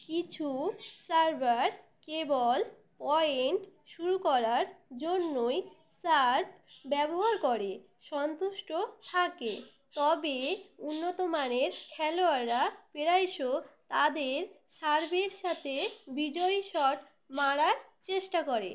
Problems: none marked